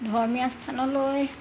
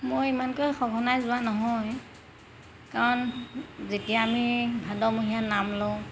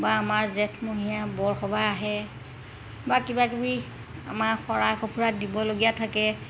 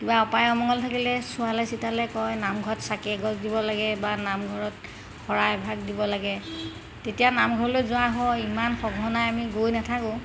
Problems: constant background noise